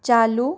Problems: none marked